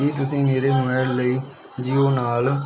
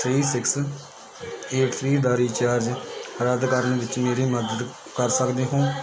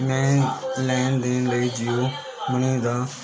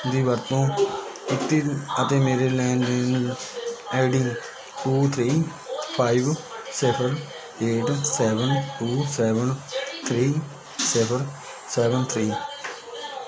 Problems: constant background noise